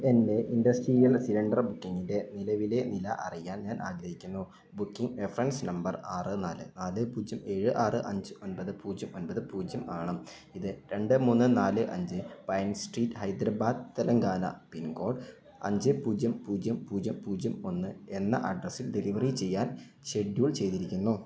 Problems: none marked